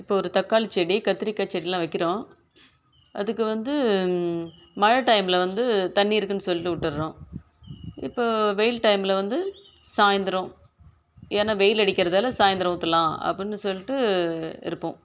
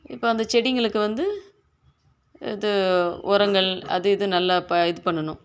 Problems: none marked